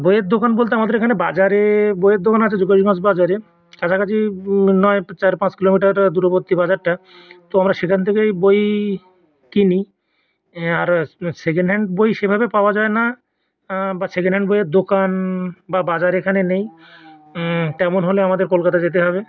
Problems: background conversations at intervals